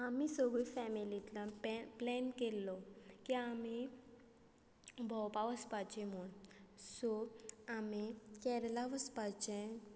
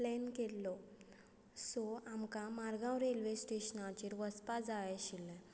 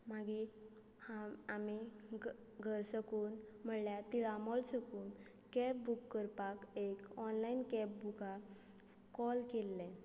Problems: constant background noise